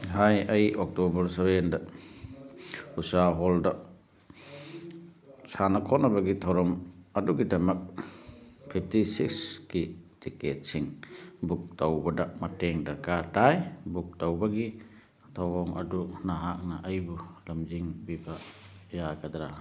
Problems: none marked